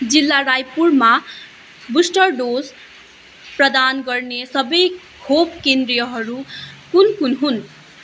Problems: none marked